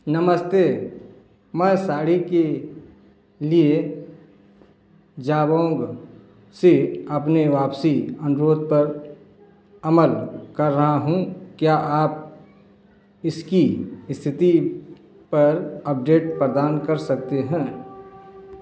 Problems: none marked